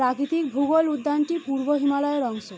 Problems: constant background noise